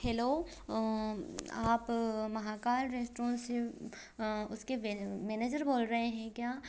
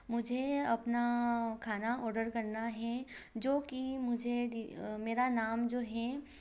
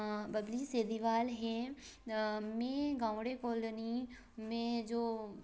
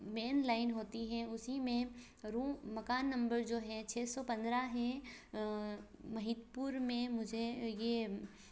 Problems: constant background noise